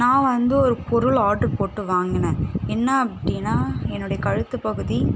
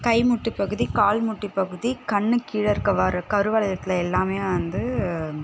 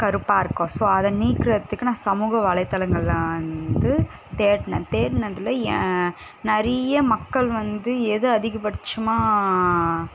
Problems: constant background noise